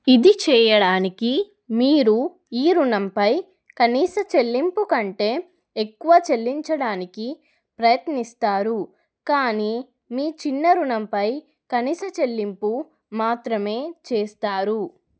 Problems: none marked